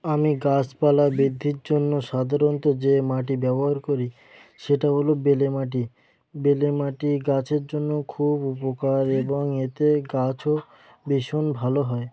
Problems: background sounds at intervals